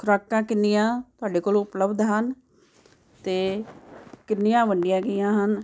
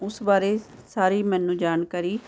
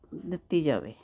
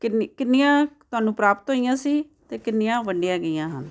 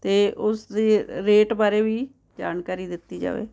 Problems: background conversations at intervals